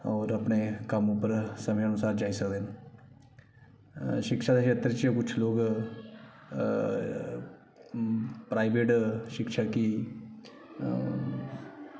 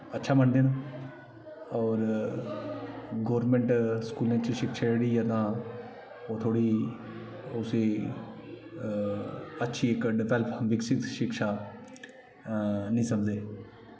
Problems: background sounds at intervals, echo